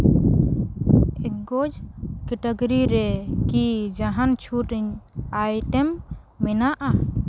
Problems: constant background noise